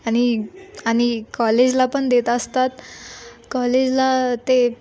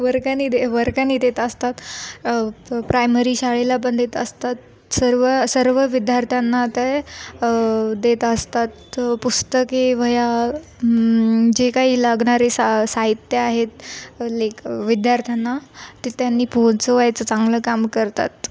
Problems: none marked